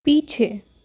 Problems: background sounds at intervals